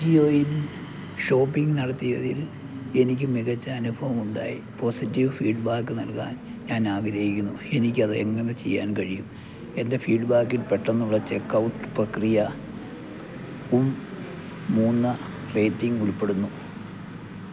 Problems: constant background noise